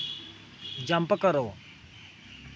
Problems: constant background noise